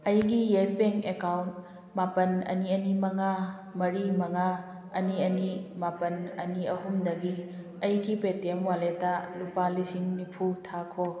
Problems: background conversations at intervals